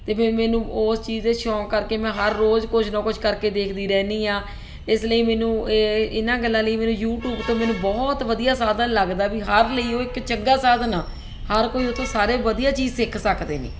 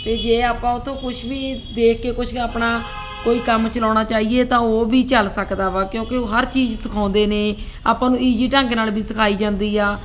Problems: constant background noise